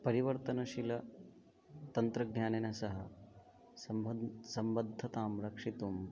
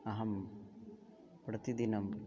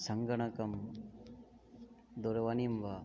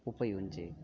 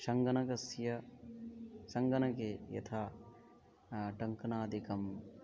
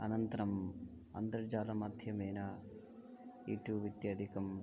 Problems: none marked